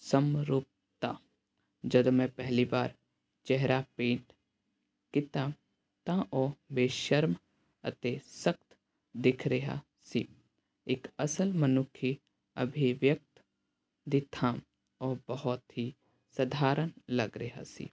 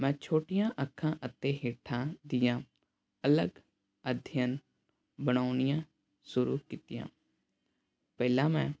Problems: none marked